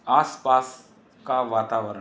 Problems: constant background noise